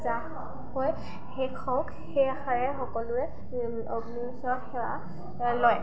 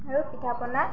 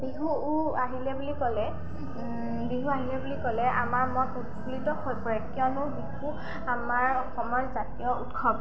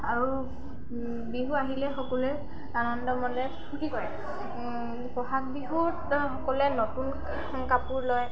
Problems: constant background noise, continuous background conversations